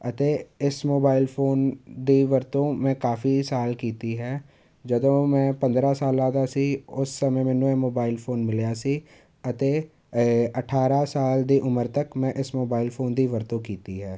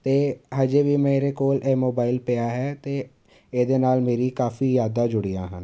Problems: none marked